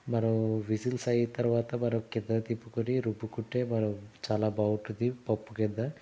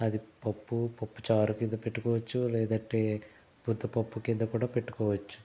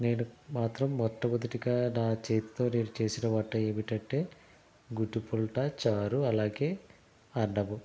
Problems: none marked